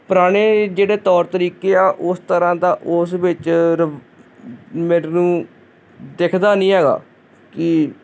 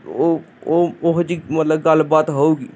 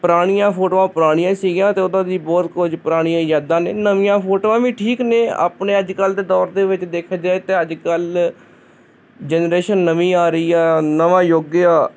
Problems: constant background noise